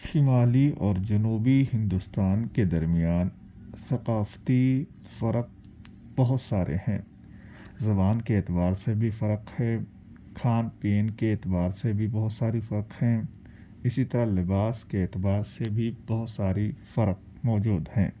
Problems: background sounds at intervals, low volume